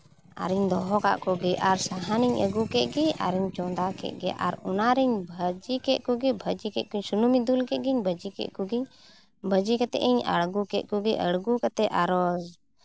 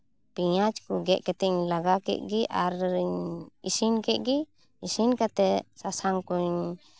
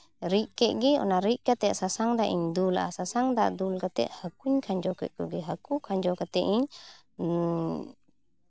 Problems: none marked